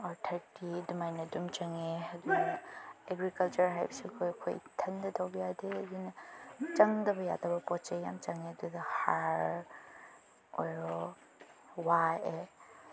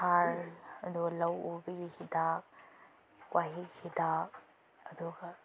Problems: background sounds at intervals, background conversations at intervals